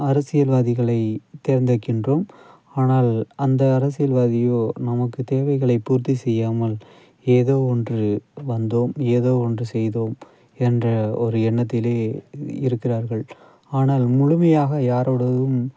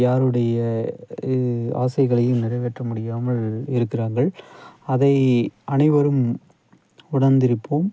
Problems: none marked